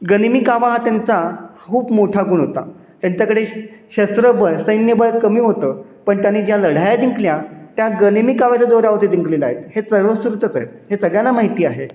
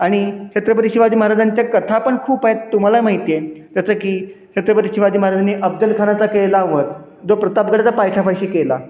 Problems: none marked